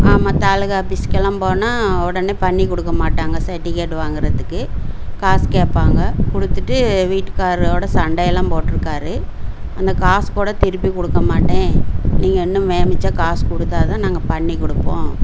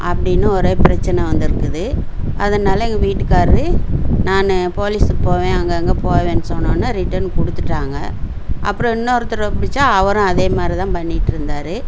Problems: low volume